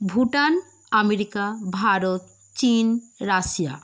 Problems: none marked